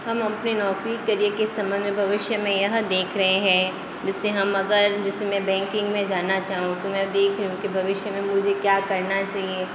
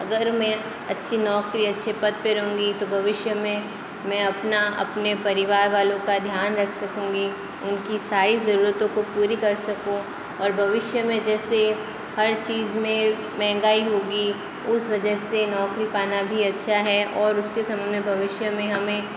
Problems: constant background noise